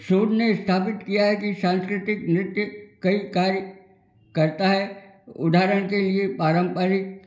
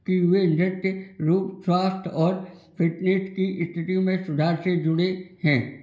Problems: background sounds at intervals